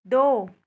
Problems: background conversations at intervals